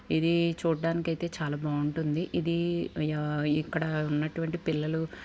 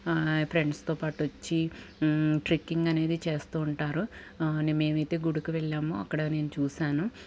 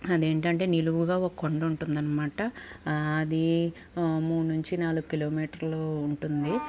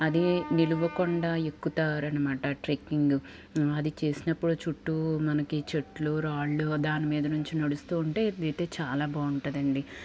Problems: constant background noise